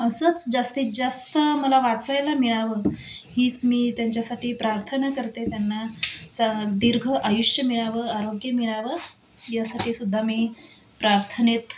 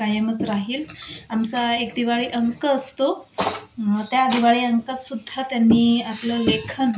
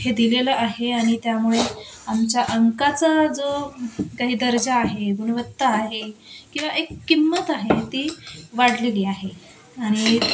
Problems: constant background noise